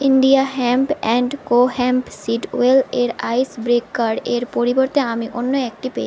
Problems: none marked